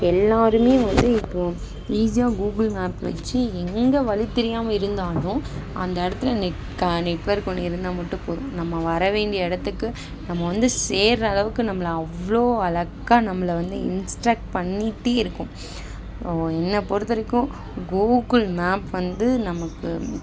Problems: constant background noise